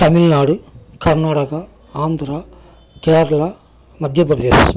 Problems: background conversations at intervals